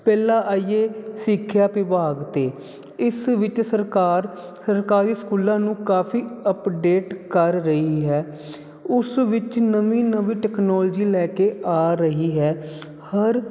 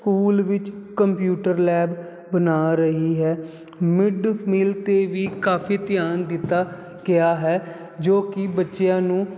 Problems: none marked